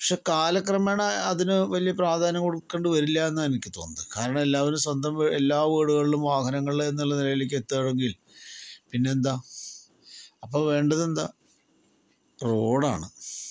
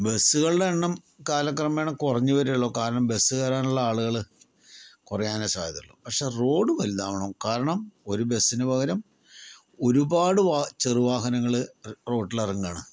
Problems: none marked